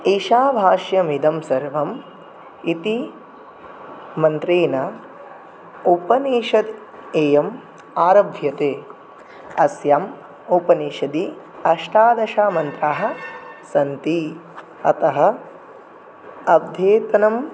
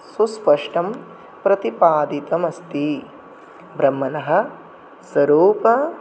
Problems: none marked